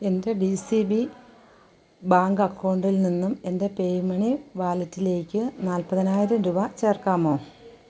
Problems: background sounds at intervals